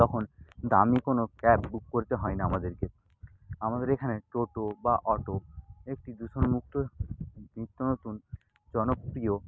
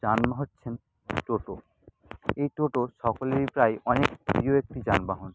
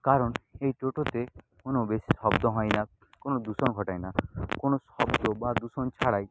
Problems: constant background noise, low volume